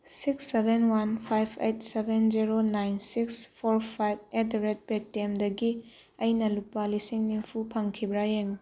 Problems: background sounds at intervals